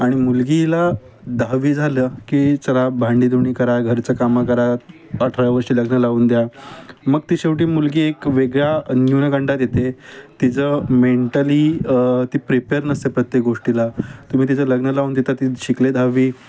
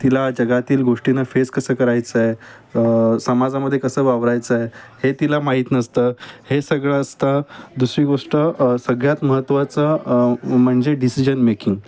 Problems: none marked